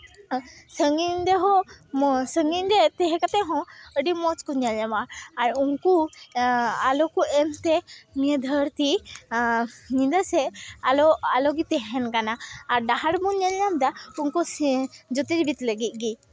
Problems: background sounds at intervals